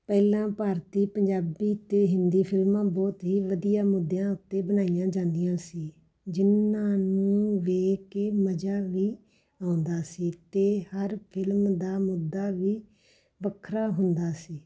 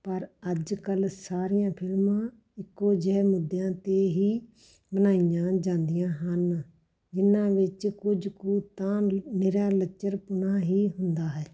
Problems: background sounds at intervals, background conversations at intervals